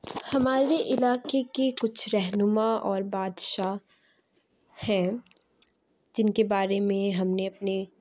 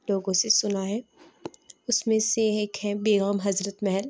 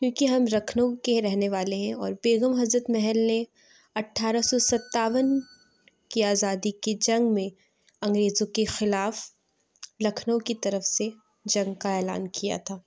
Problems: background sounds at intervals